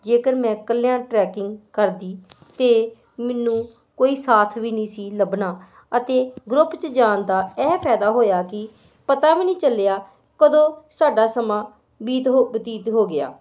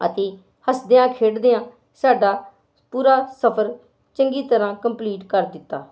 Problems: constant background noise